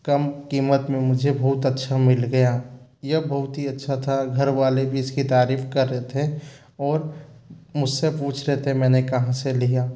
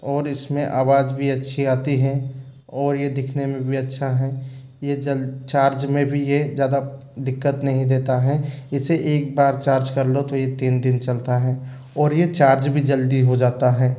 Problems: background sounds at intervals